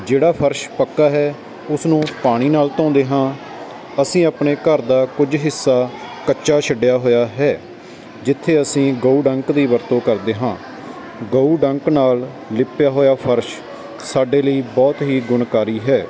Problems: constant background noise